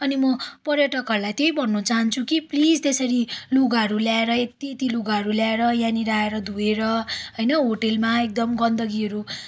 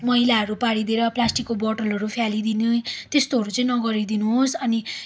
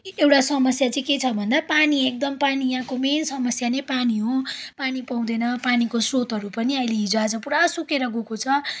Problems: background sounds at intervals